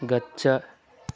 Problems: none marked